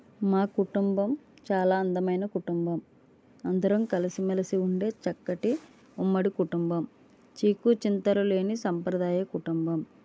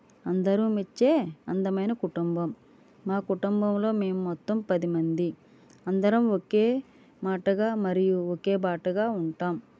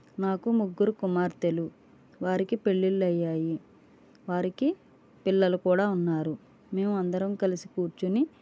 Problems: none marked